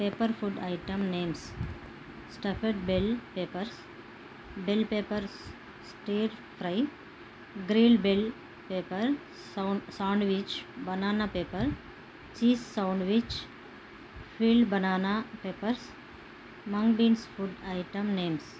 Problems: constant background noise